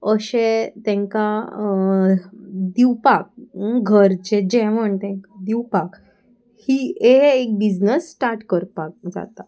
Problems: constant background noise